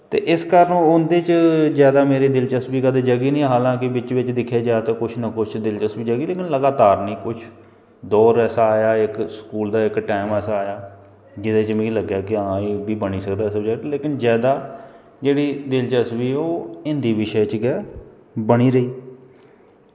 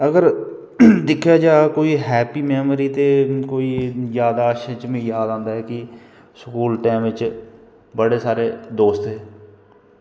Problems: none marked